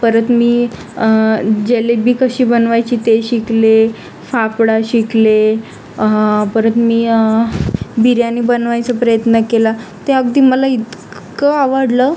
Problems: constant background noise, background conversations at intervals